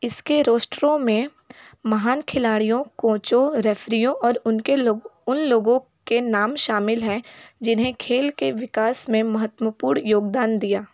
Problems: none marked